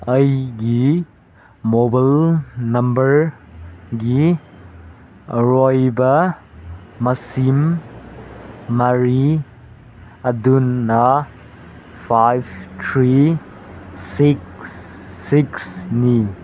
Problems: background sounds at intervals